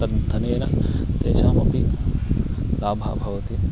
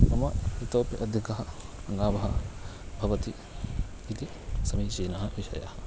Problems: constant background noise, continuous background conversations